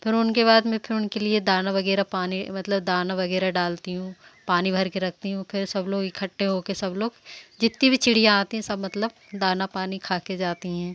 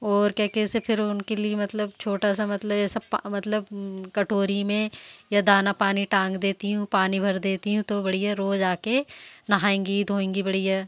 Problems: none marked